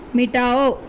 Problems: constant background noise